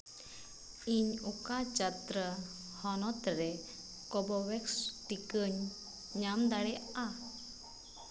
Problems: constant background noise